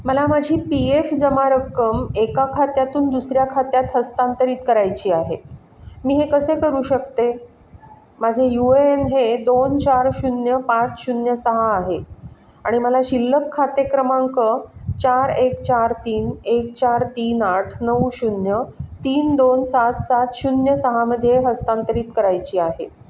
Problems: background sounds at intervals, background conversations at intervals